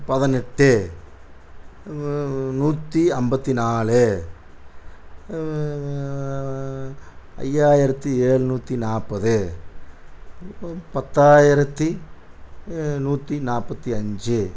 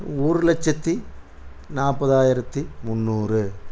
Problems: constant background noise